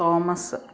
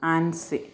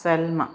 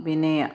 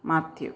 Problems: none marked